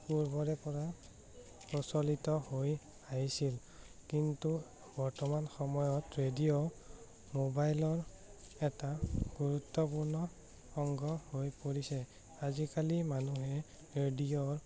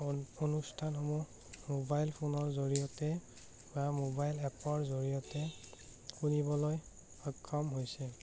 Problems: none marked